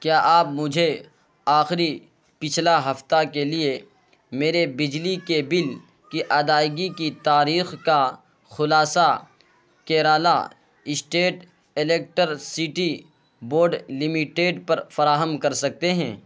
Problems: constant background noise